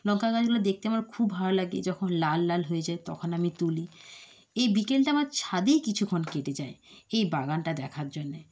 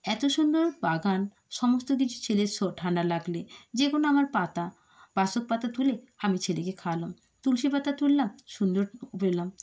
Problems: none marked